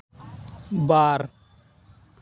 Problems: constant background noise